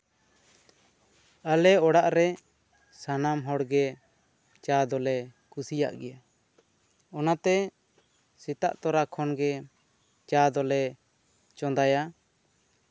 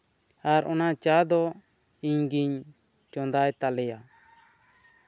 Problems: constant background noise